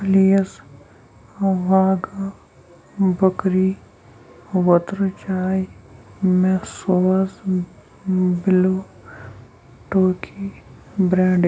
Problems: background sounds at intervals, low volume